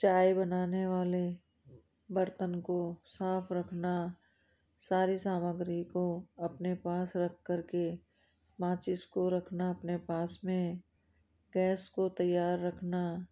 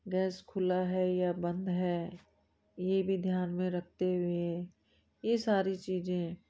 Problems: low volume